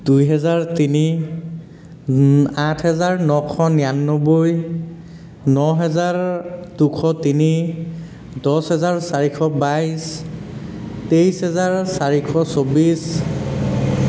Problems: constant background noise